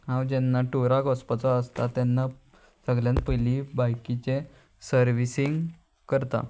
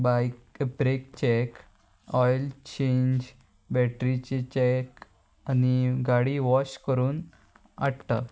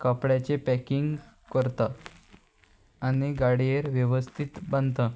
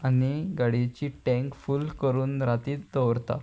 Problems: constant background noise